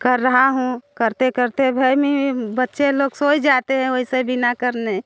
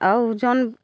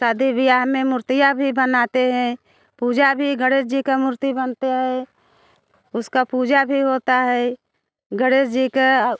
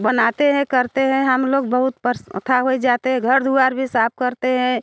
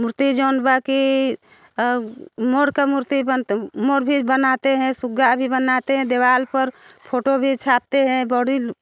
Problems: none marked